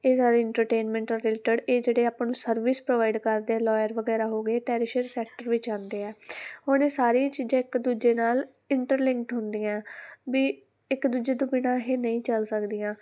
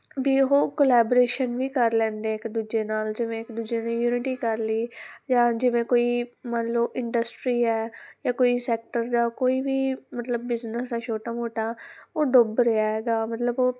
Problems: background sounds at intervals